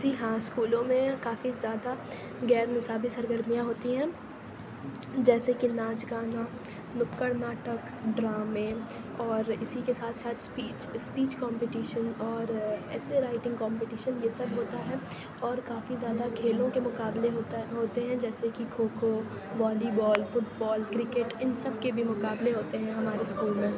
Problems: constant background noise